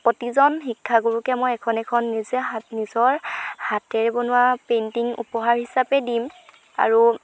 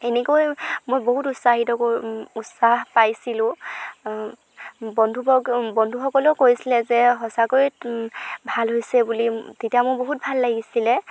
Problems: none marked